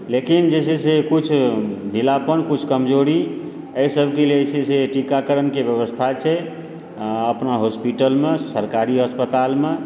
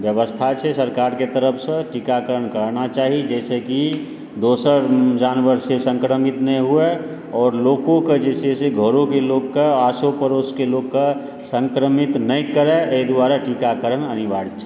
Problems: background sounds at intervals